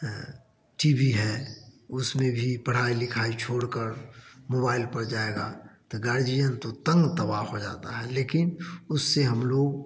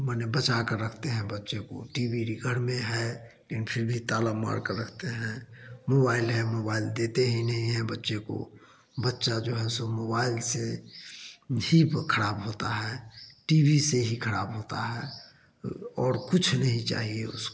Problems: none marked